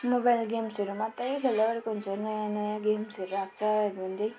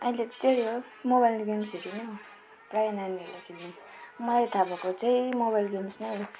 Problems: constant background noise